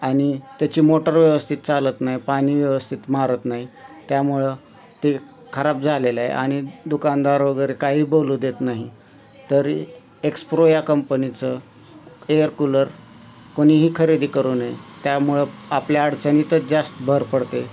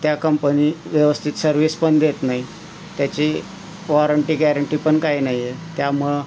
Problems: none marked